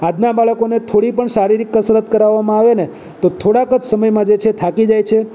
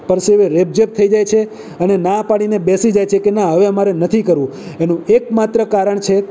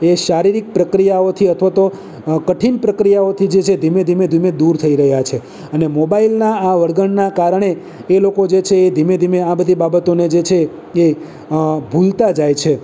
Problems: none marked